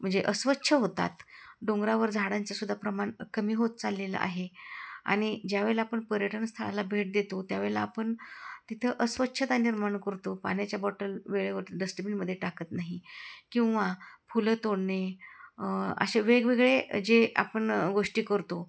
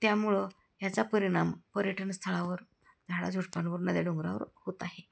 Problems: none marked